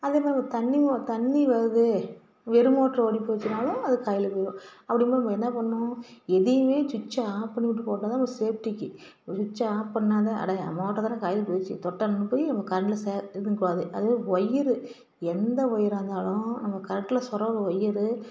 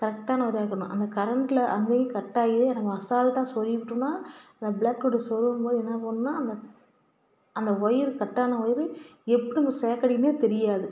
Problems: none marked